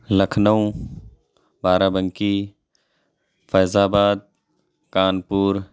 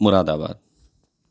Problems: none marked